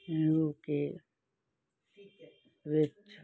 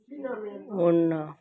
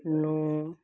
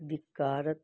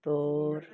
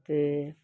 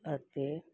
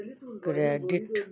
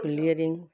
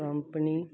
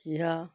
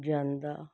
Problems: none marked